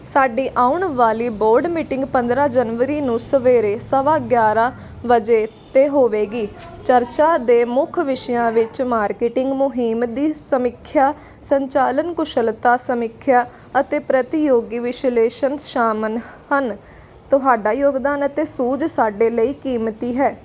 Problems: constant background noise